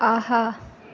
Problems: background conversations at intervals